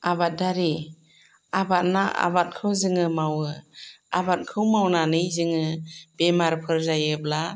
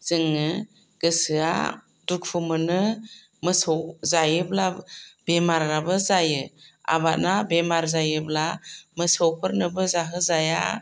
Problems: none marked